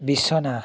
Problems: background conversations at intervals